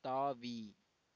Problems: low volume